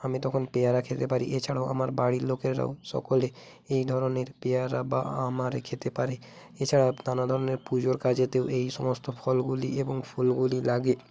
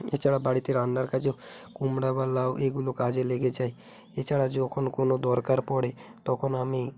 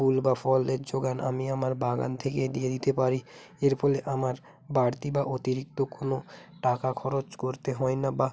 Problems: constant background noise